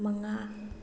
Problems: low volume